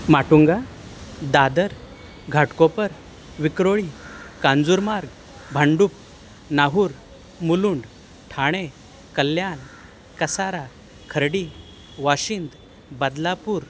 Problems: constant background noise